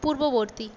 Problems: constant background noise